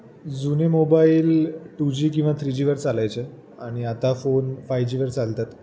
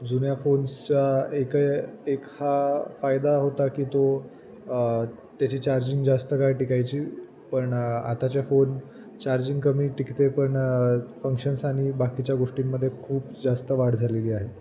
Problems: none marked